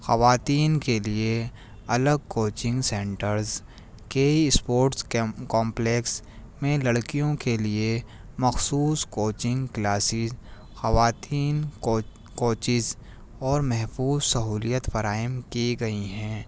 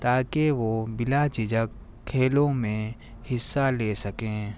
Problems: none marked